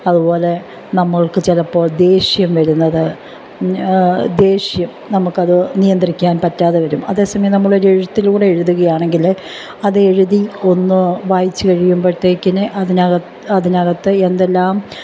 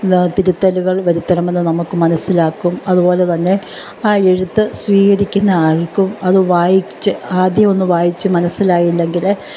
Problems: none marked